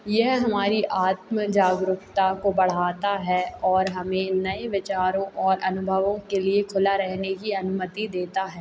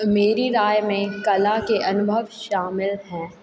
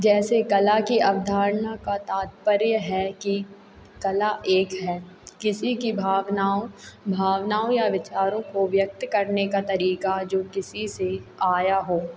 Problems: constant background noise